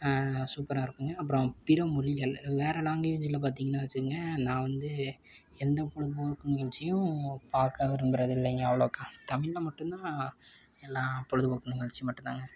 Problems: background sounds at intervals